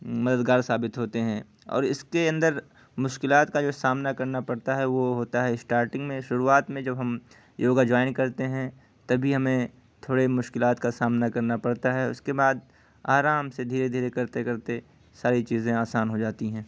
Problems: constant background noise